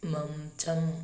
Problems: none marked